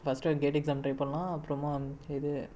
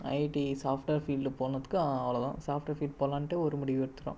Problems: low volume